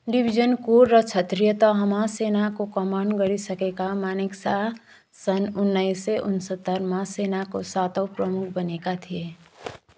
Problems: background sounds at intervals